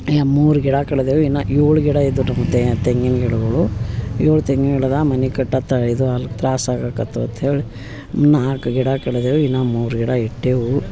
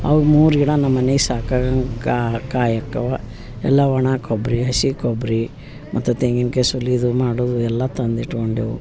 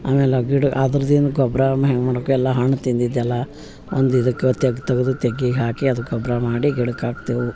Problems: background sounds at intervals